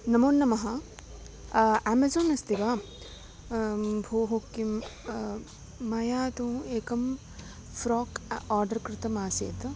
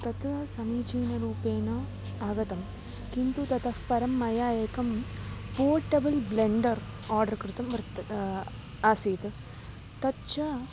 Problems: constant background noise